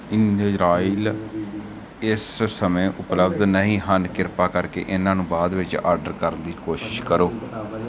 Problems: background conversations at intervals